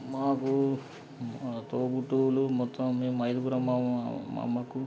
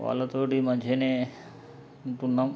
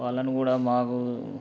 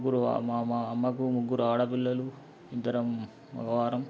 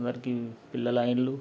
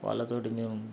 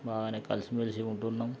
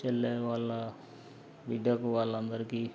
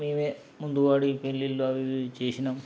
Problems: background sounds at intervals, background conversations at intervals